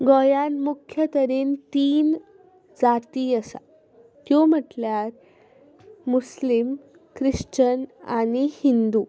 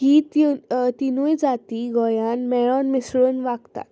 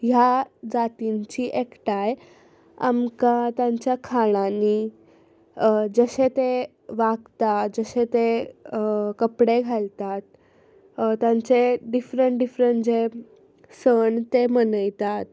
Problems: none marked